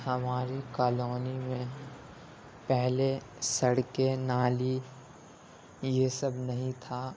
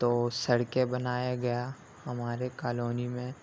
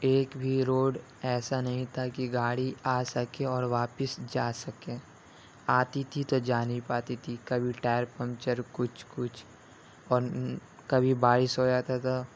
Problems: constant background noise